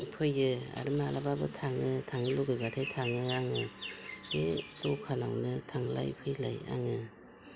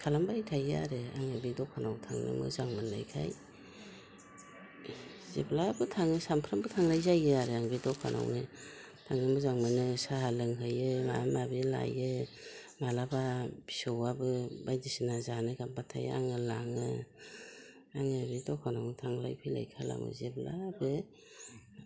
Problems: constant background noise